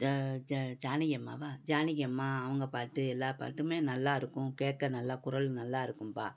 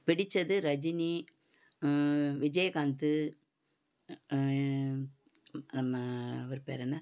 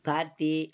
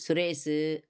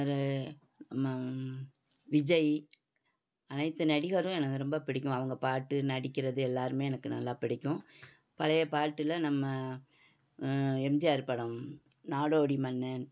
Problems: background sounds at intervals